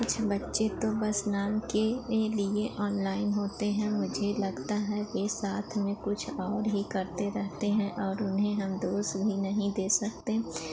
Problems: none marked